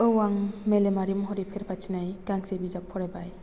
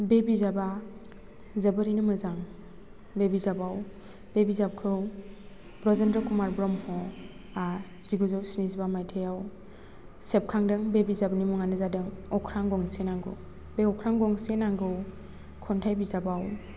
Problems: none marked